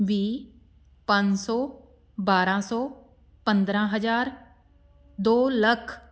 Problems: background sounds at intervals